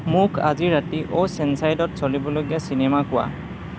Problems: constant background noise